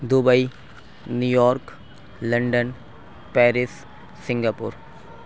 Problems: none marked